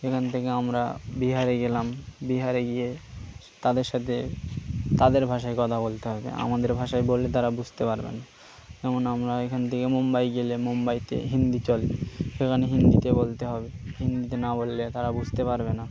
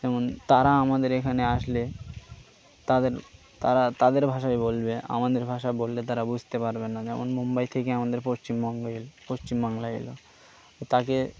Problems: constant background noise